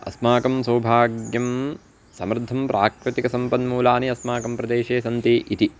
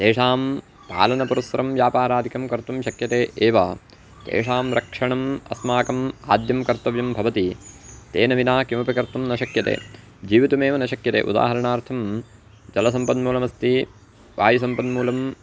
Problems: constant background noise